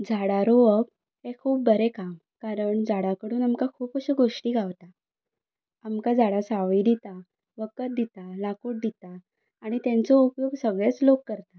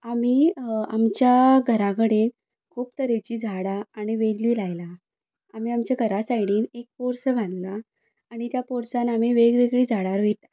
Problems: background sounds at intervals